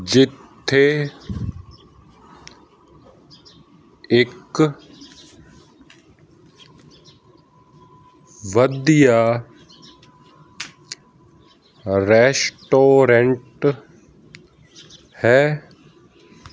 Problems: background sounds at intervals